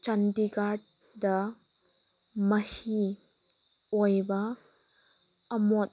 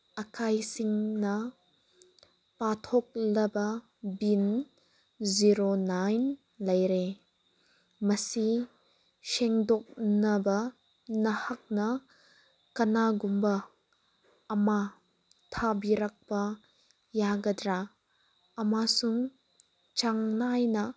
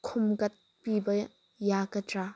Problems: none marked